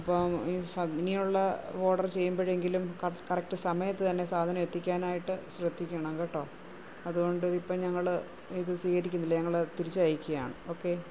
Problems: constant background noise, low volume